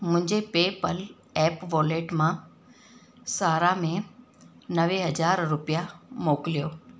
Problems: constant background noise, echo